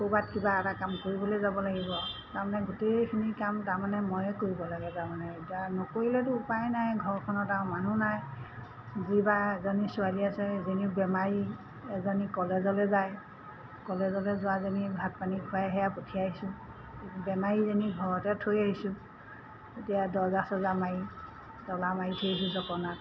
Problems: constant background noise